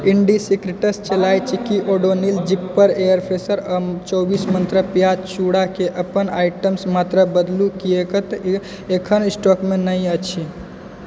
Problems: background conversations at intervals